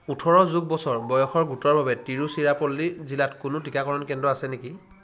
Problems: constant background noise